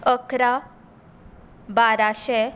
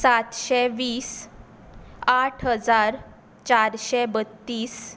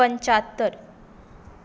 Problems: none marked